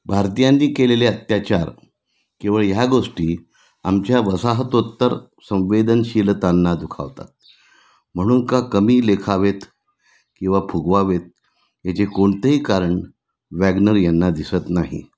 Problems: none marked